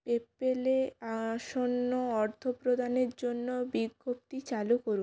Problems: none marked